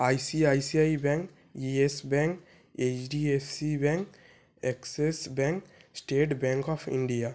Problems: background sounds at intervals